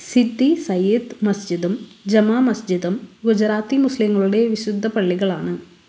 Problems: constant background noise